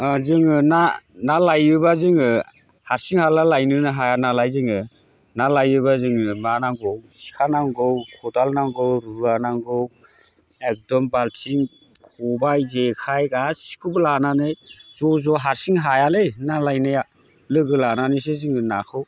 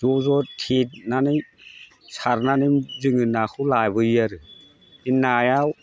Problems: constant background noise